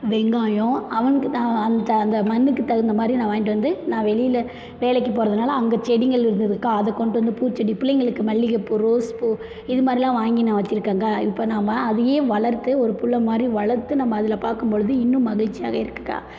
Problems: constant background noise